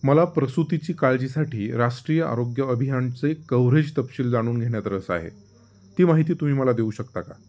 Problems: background sounds at intervals